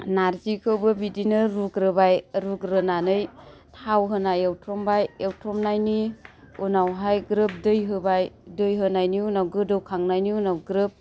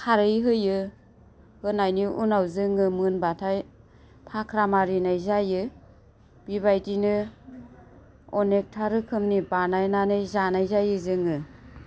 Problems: constant background noise